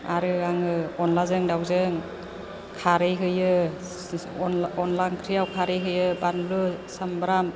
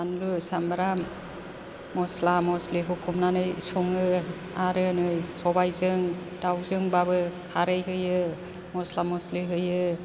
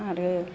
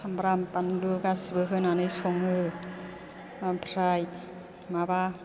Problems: background conversations at intervals